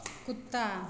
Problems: none marked